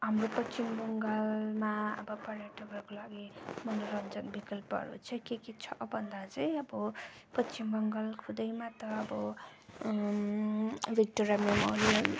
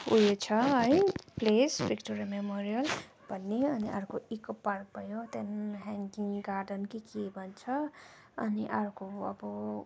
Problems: background sounds at intervals